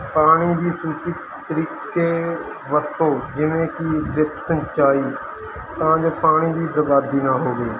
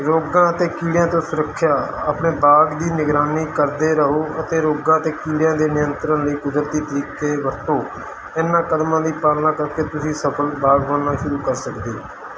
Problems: none marked